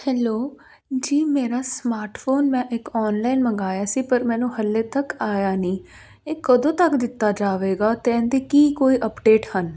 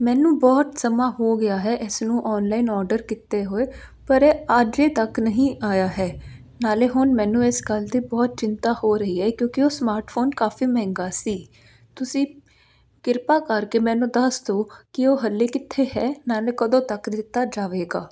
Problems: background sounds at intervals